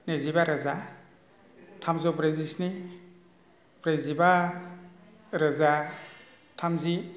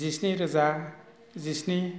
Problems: none marked